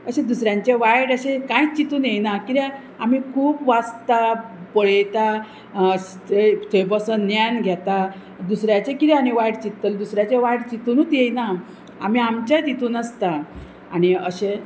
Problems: constant background noise